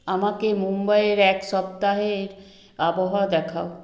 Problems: background sounds at intervals